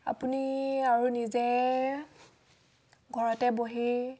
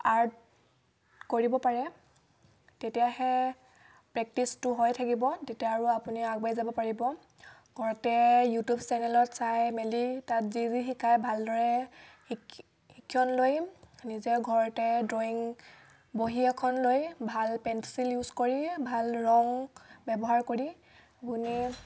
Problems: background sounds at intervals